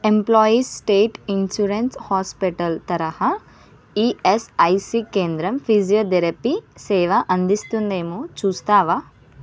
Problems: constant background noise